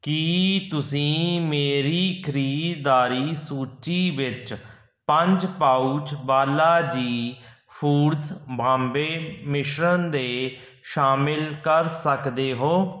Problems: background sounds at intervals